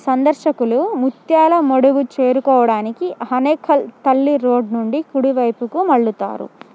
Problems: none marked